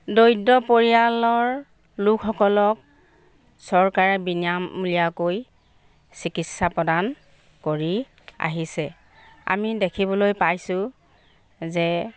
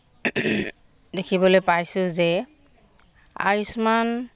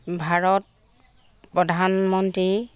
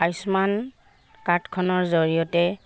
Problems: background sounds at intervals